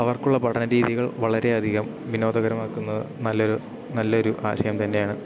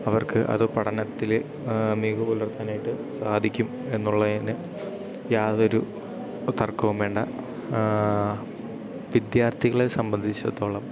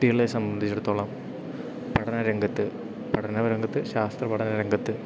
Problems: background sounds at intervals